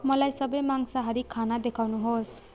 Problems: continuous background conversations